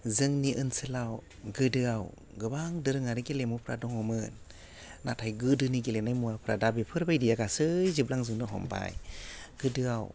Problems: low volume